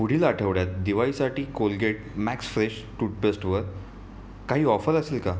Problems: none marked